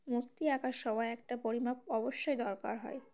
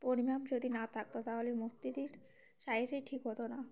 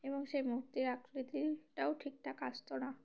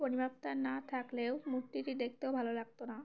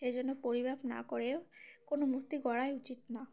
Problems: background sounds at intervals, background conversations at intervals